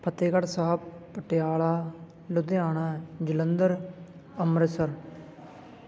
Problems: background conversations at intervals